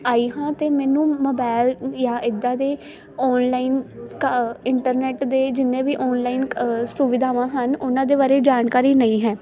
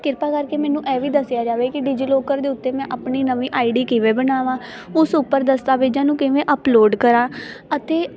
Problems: constant background noise, continuous background conversations